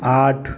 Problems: none marked